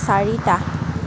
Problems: constant background noise